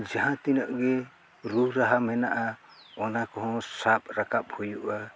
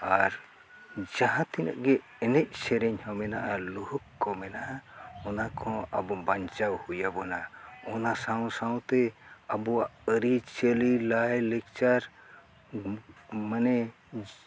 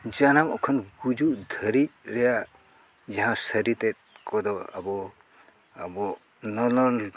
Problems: none marked